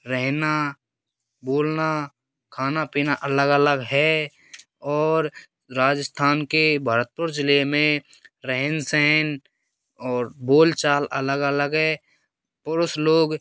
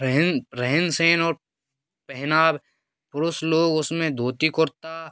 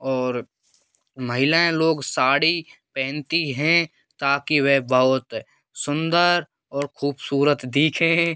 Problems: none marked